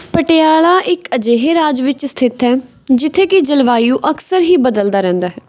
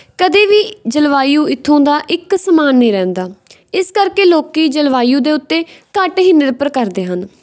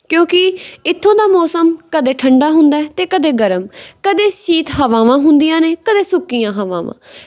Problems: background sounds at intervals